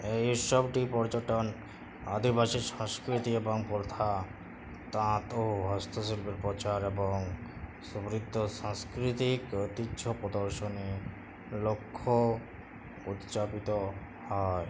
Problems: none marked